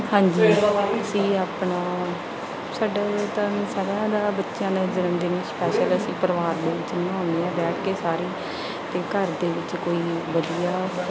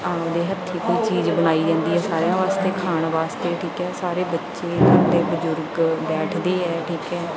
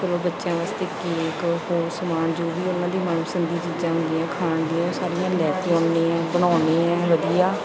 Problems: continuous background conversations